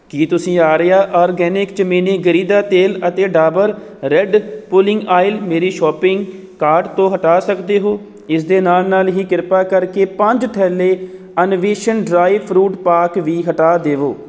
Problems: none marked